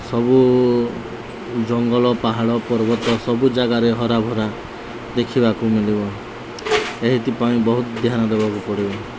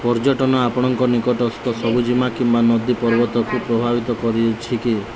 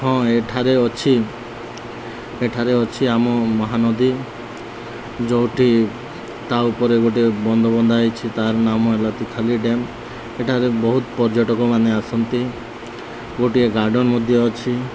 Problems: none marked